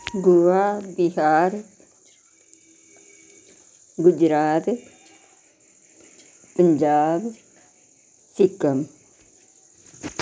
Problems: none marked